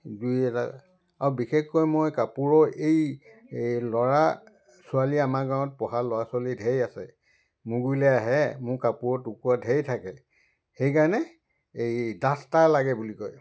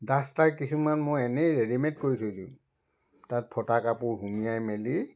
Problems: constant background noise